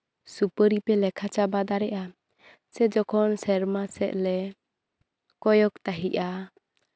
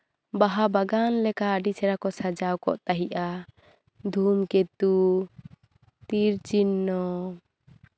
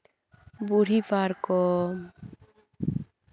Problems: none marked